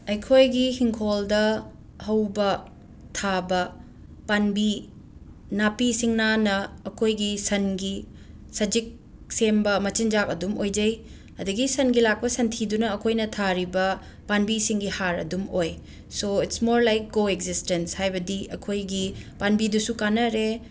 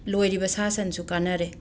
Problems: none marked